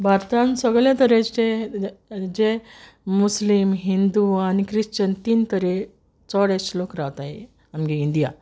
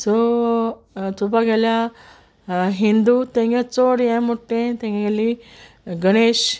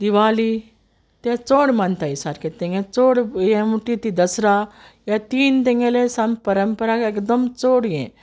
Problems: constant background noise